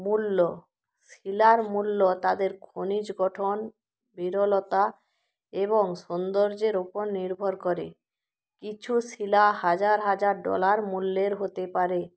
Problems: background sounds at intervals